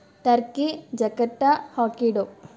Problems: none marked